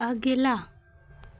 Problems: constant background noise